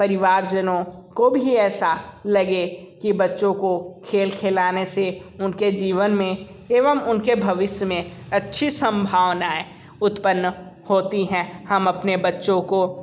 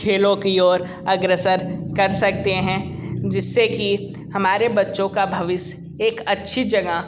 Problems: constant background noise